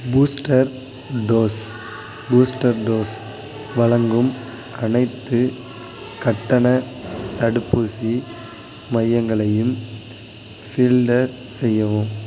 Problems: constant background noise